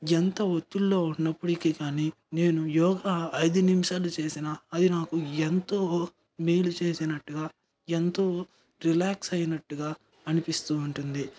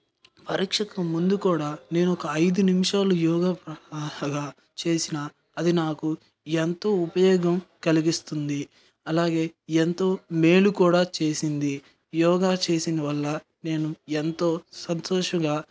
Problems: background sounds at intervals